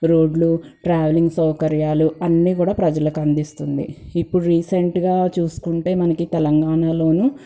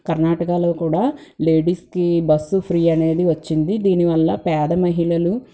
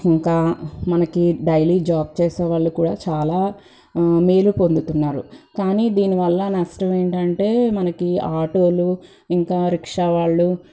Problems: background sounds at intervals